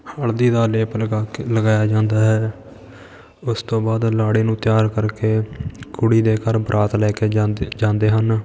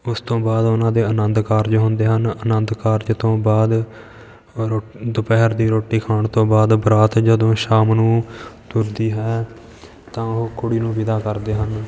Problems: constant background noise